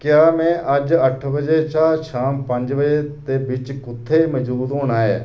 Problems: none marked